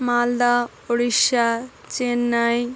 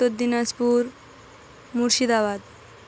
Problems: constant background noise